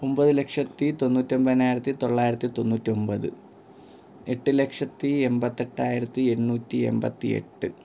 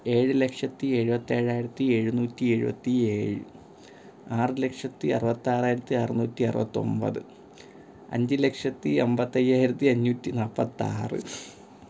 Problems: constant background noise